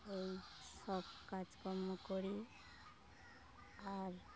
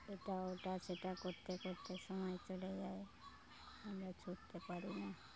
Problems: low volume